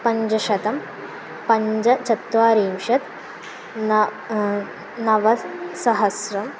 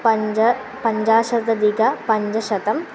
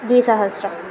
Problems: constant background noise